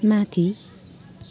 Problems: none marked